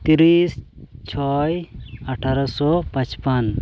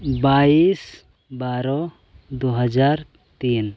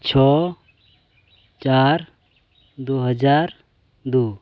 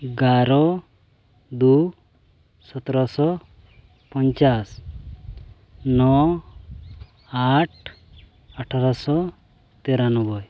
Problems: none marked